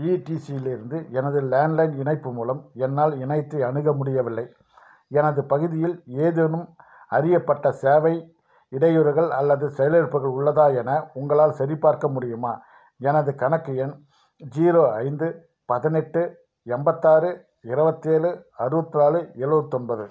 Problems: none marked